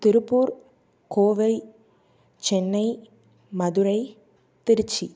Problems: none marked